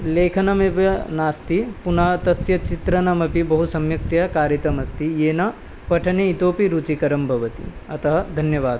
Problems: constant background noise